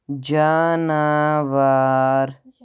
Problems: none marked